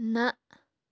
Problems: none marked